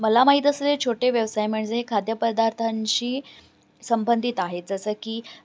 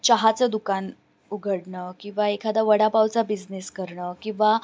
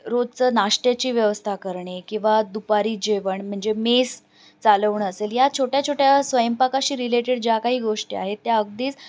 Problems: none marked